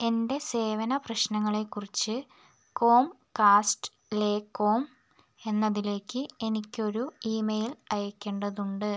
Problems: none marked